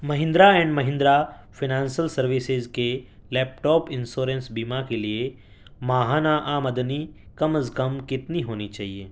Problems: constant background noise